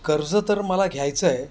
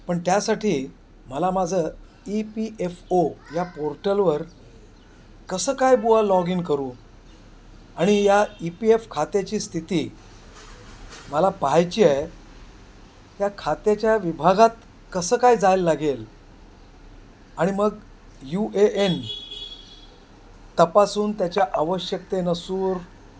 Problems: constant background noise, background conversations at intervals